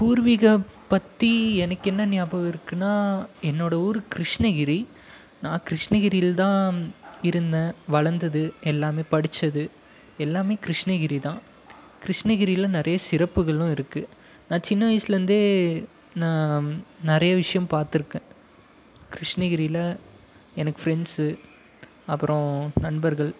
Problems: background sounds at intervals